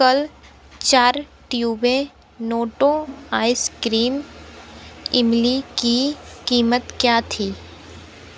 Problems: none marked